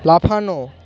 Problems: constant background noise, continuous background conversations